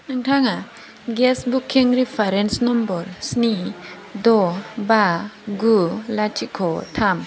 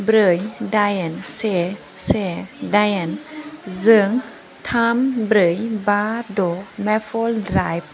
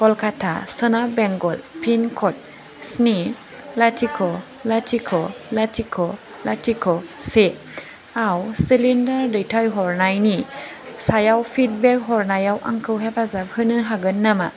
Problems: constant background noise